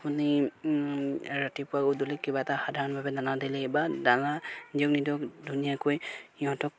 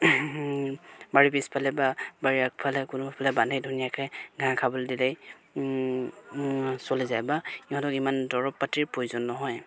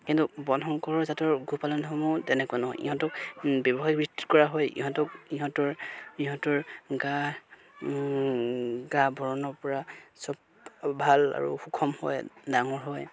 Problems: none marked